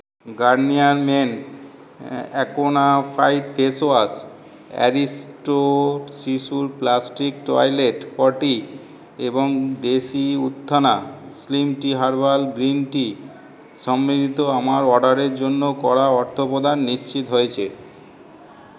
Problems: none marked